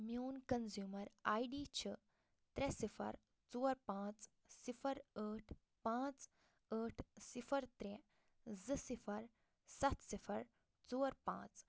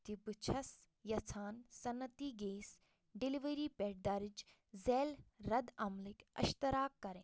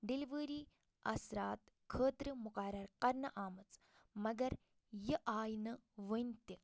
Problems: low volume